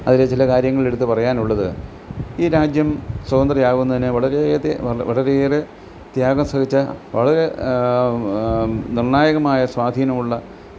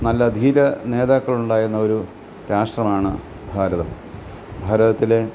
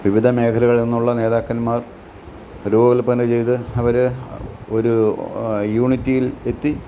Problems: background sounds at intervals